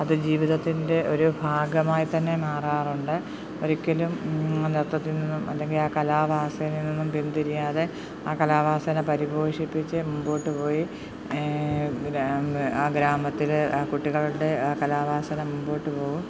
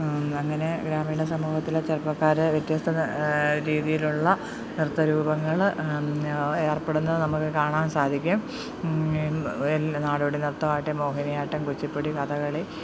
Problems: background sounds at intervals